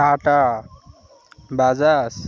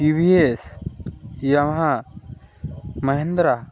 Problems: constant background noise